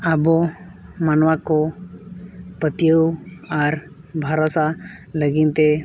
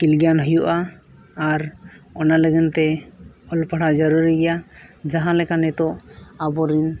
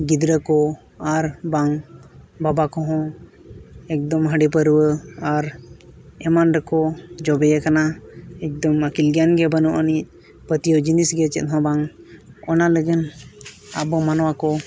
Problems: constant background noise, background conversations at intervals